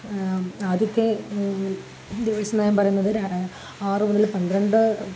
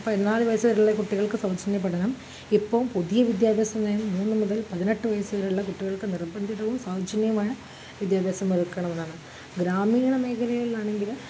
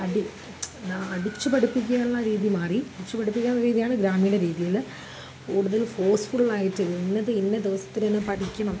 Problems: constant background noise